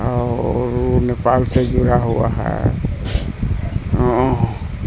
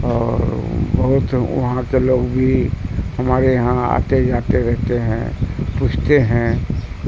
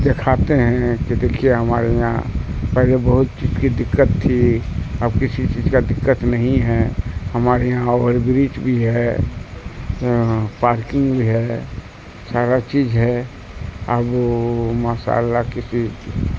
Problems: constant background noise